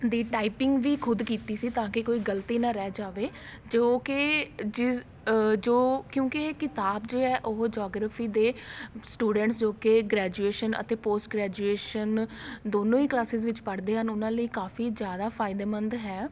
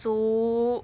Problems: constant background noise